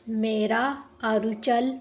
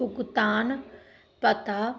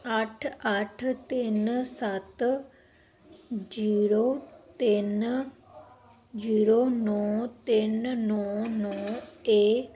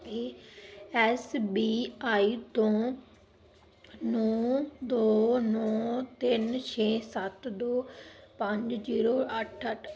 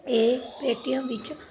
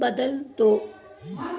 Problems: background sounds at intervals